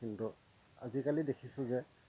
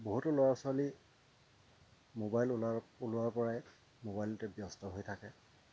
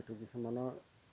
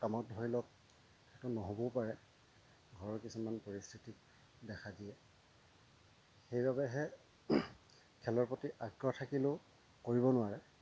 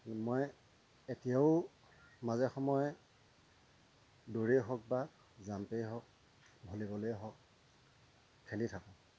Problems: constant background noise, low volume